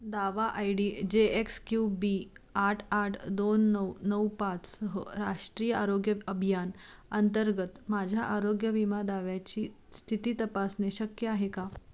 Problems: constant background noise, low volume